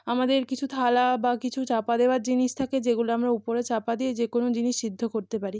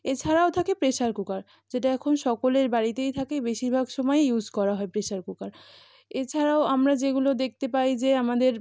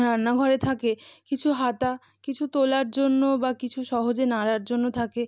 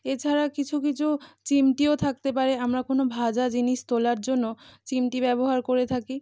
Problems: background sounds at intervals